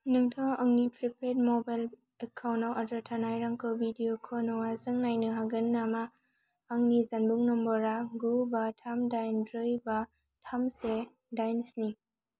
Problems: constant background noise